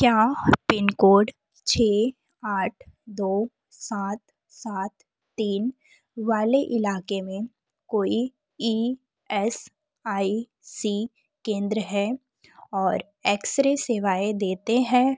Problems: none marked